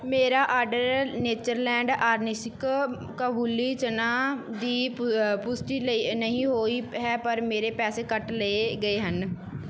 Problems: background sounds at intervals